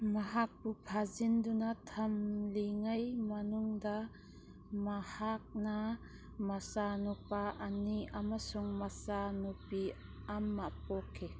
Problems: background sounds at intervals